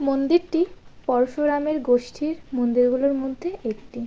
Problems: constant background noise